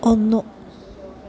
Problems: none marked